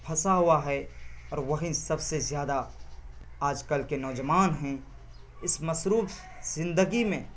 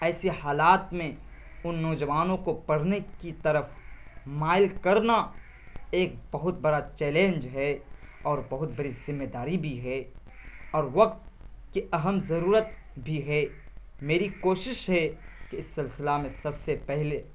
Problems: constant background noise